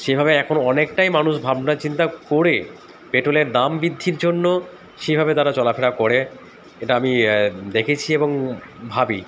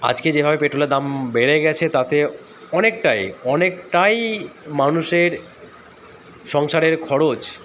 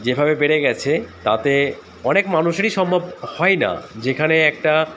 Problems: constant background noise